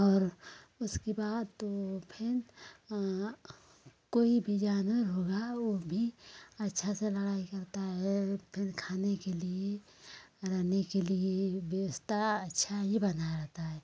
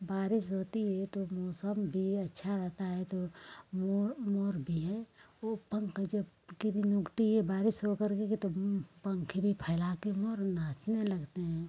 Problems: none marked